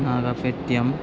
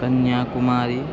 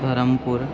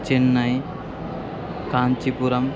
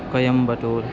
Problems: constant background noise